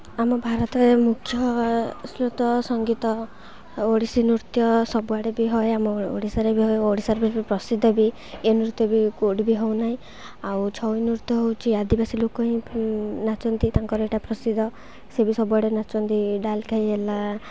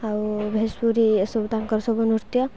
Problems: constant background noise